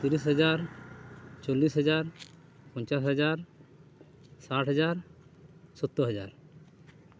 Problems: constant background noise